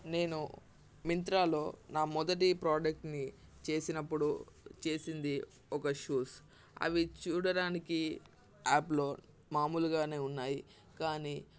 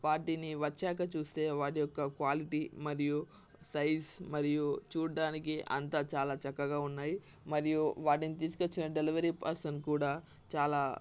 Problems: constant background noise